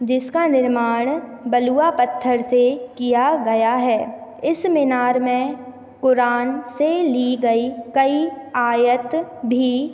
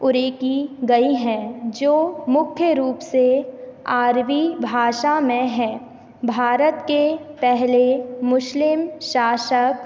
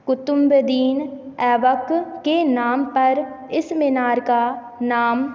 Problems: none marked